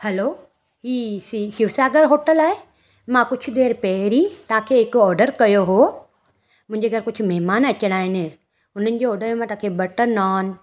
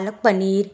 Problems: none marked